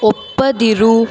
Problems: background sounds at intervals